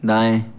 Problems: none marked